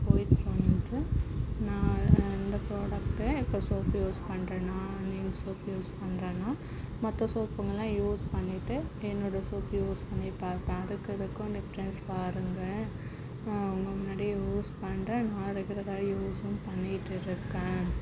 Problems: background sounds at intervals, low volume